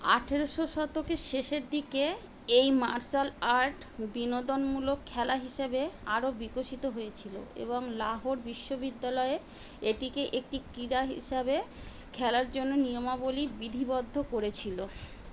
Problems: constant background noise